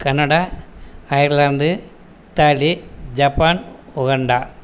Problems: constant background noise